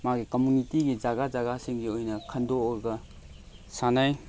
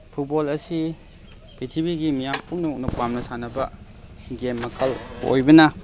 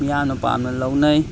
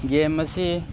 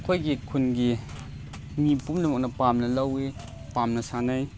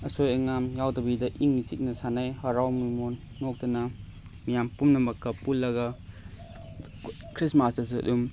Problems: constant background noise